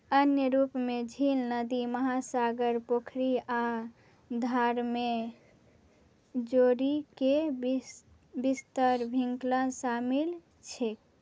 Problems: none marked